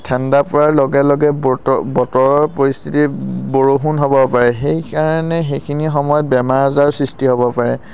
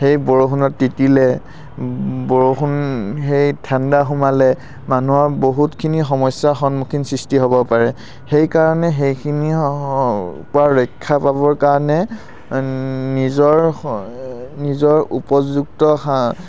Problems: none marked